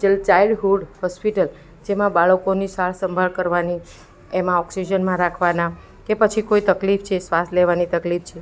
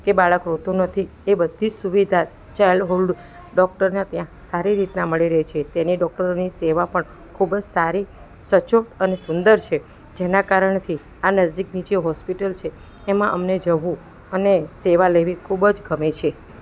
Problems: background sounds at intervals